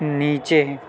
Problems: none marked